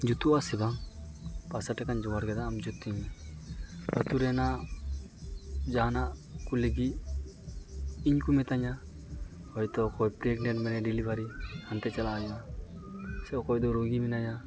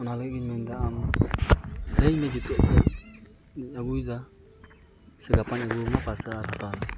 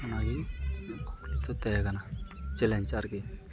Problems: constant background noise